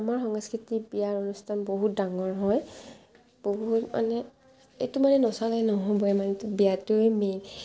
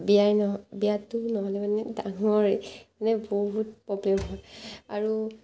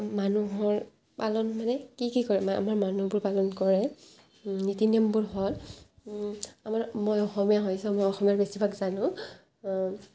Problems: constant background noise, background conversations at intervals